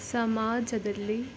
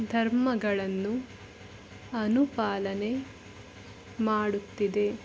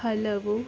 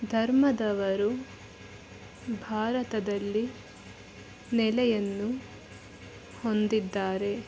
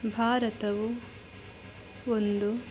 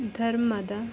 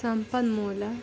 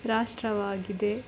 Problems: background sounds at intervals